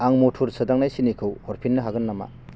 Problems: constant background noise